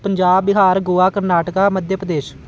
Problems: none marked